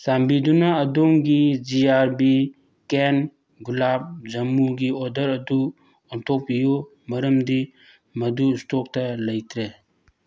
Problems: none marked